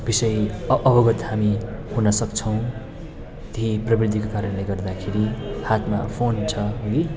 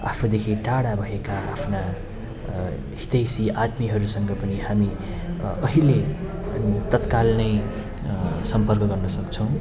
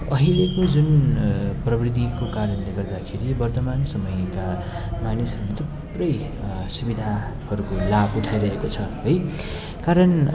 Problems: background sounds at intervals